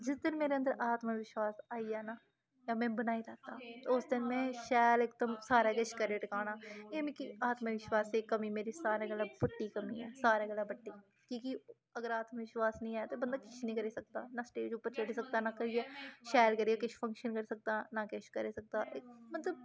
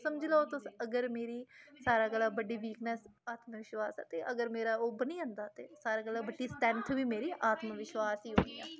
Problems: constant background noise